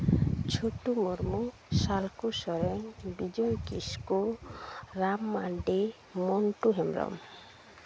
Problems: constant background noise